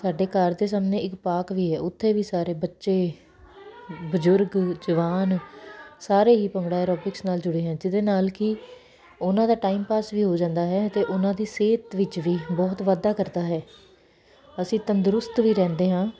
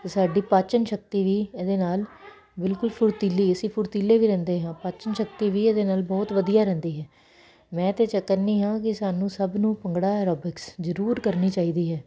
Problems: constant background noise